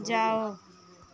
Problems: none marked